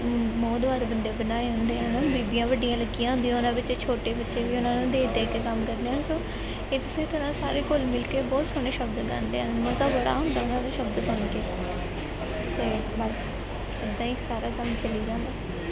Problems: constant background noise, background conversations at intervals